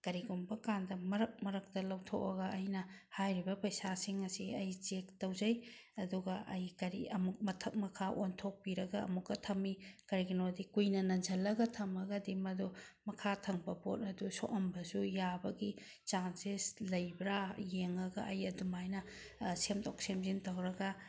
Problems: none marked